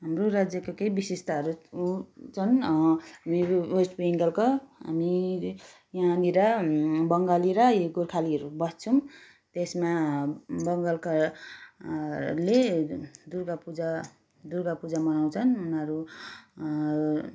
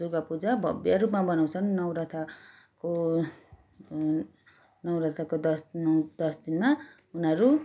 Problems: background sounds at intervals